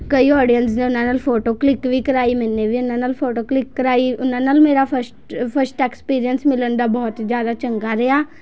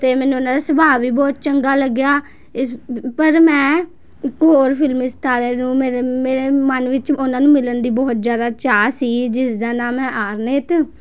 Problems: background sounds at intervals, continuous background conversations